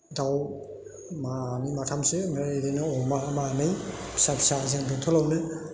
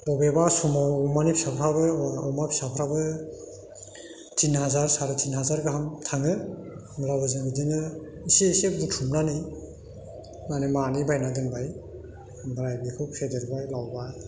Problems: constant background noise